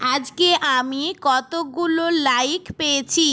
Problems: none marked